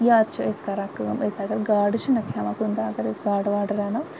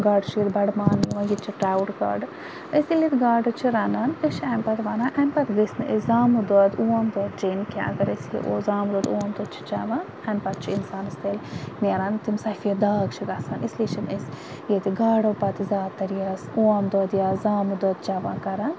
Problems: constant background noise